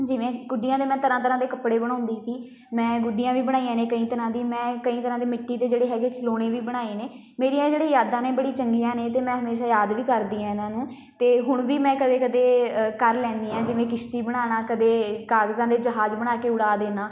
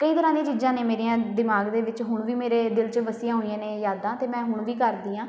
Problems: background sounds at intervals, background conversations at intervals